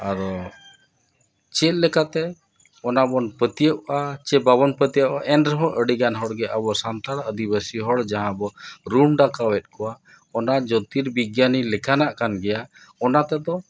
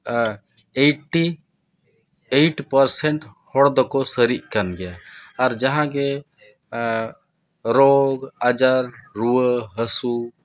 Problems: none marked